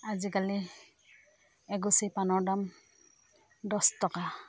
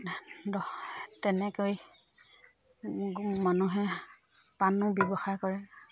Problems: constant background noise, background conversations at intervals